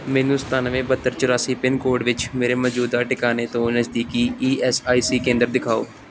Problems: background sounds at intervals